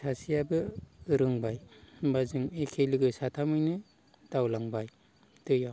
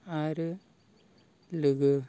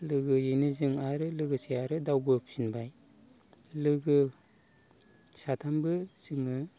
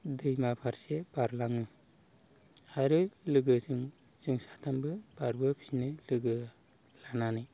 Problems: none marked